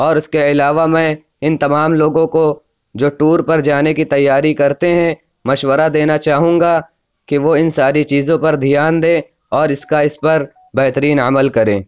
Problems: background sounds at intervals